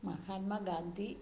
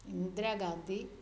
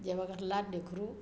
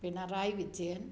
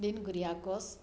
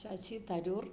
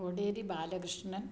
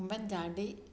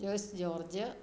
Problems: background conversations at intervals